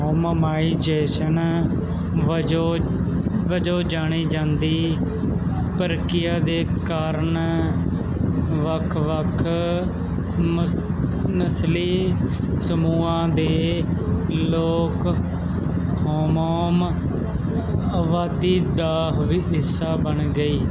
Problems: constant background noise